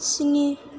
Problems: constant background noise